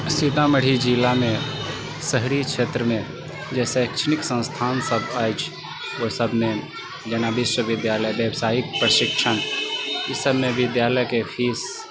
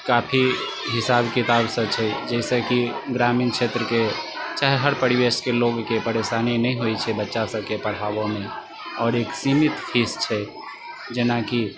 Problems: constant background noise